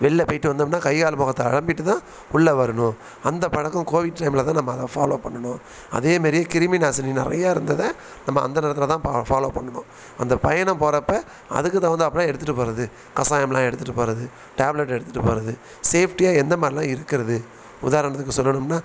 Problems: background sounds at intervals